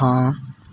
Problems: background sounds at intervals